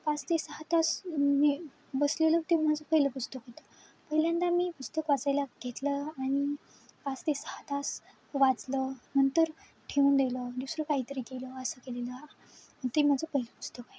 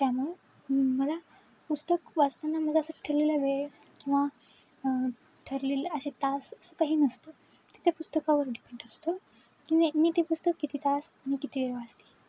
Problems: constant background noise